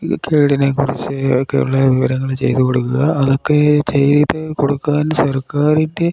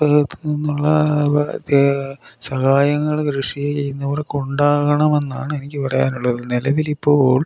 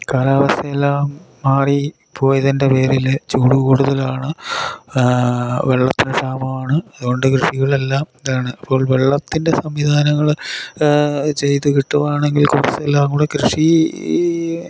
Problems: none marked